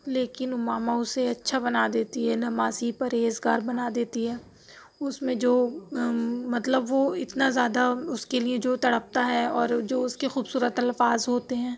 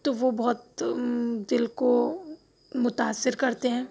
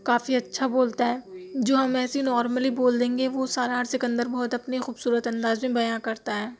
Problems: none marked